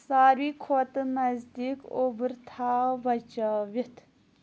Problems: none marked